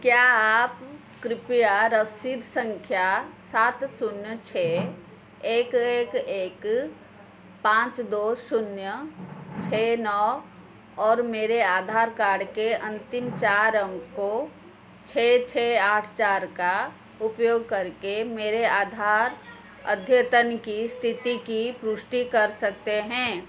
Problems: constant background noise